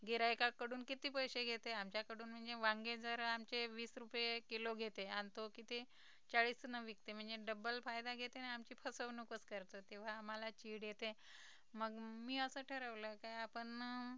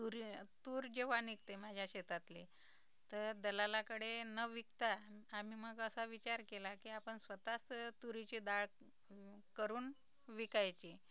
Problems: low volume